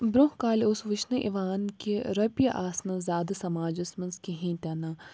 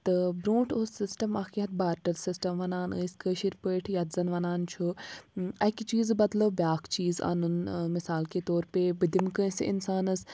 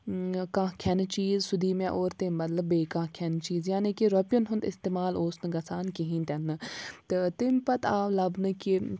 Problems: background sounds at intervals